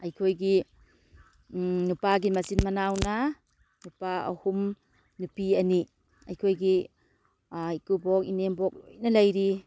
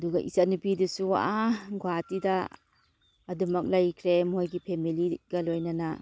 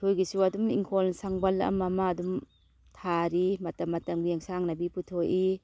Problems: none marked